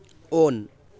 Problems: background sounds at intervals